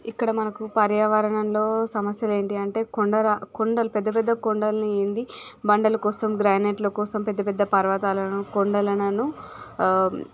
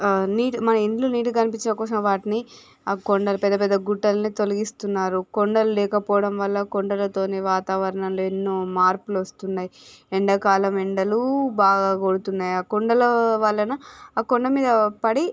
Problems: background sounds at intervals